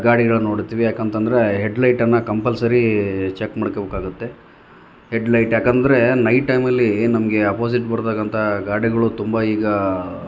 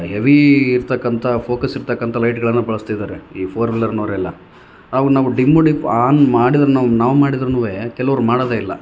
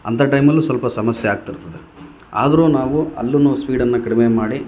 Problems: none marked